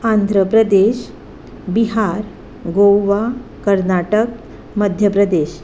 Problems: none marked